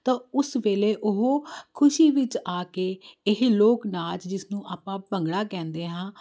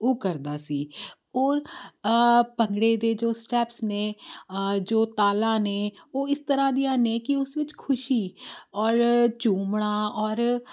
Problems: constant background noise